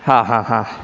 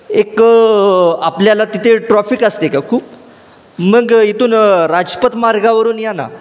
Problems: none marked